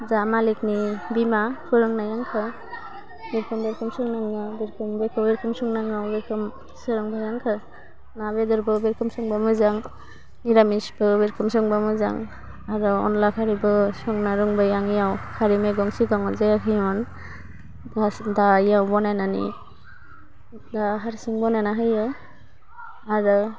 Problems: constant background noise